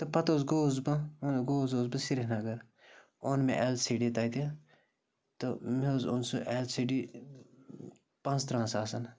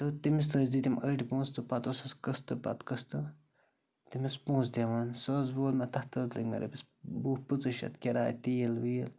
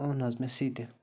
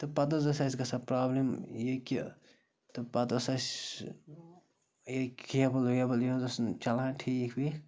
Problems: constant background noise